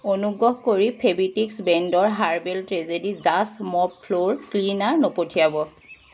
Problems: constant background noise